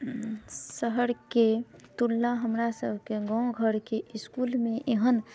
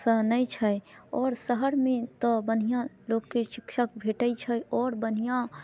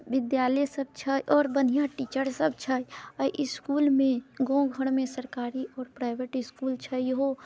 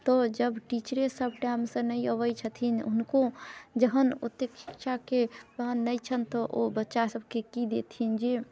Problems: none marked